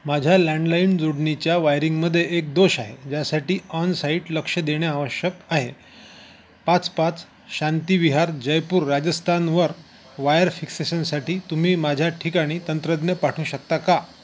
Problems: constant background noise